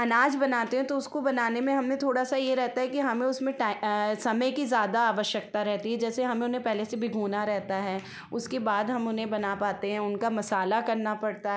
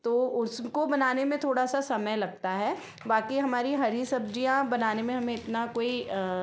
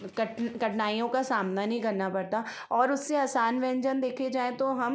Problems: background sounds at intervals